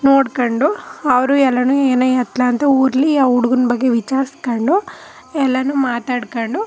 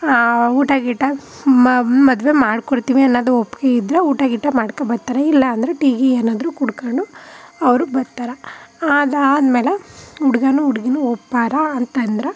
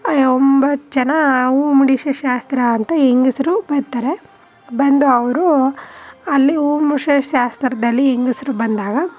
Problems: none marked